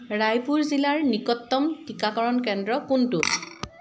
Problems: background sounds at intervals